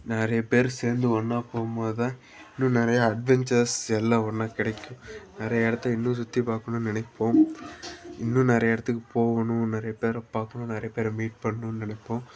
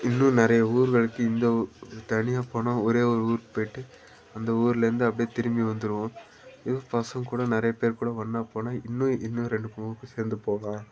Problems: background sounds at intervals, background conversations at intervals